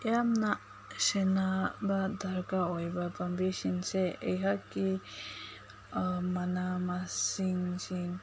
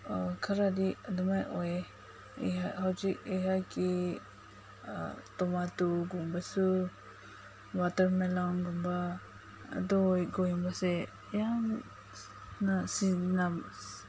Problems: constant background noise